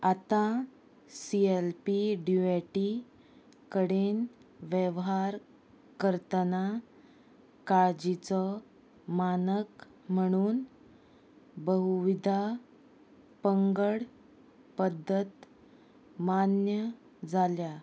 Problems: none marked